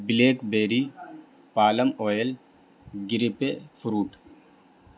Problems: background sounds at intervals